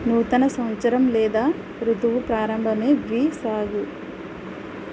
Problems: constant background noise